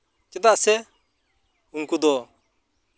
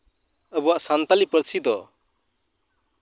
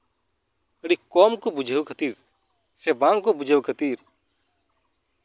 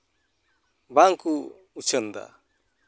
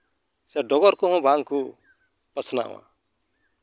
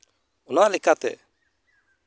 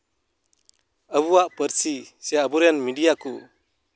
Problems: background sounds at intervals